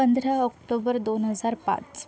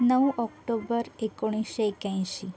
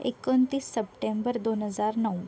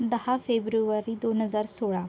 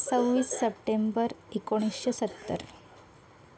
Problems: constant background noise, background conversations at intervals